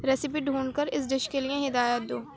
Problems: constant background noise